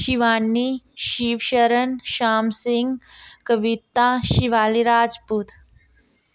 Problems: none marked